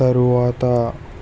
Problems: constant background noise